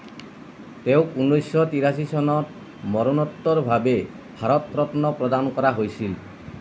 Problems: constant background noise